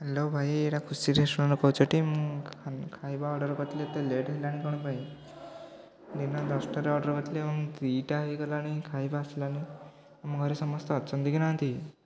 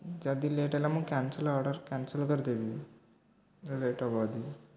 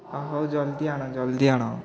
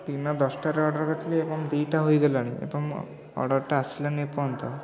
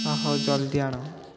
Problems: constant background noise